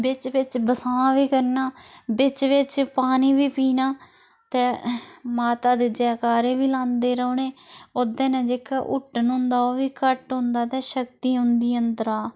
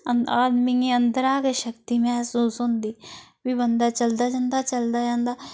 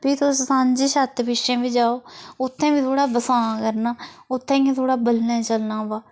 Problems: constant background noise